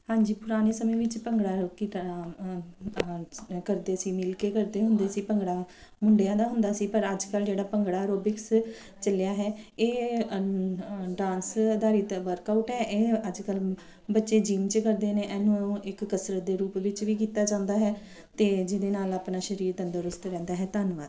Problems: background sounds at intervals